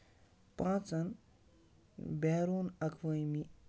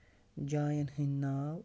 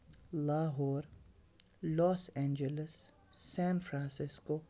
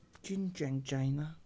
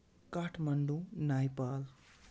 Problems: background sounds at intervals, low volume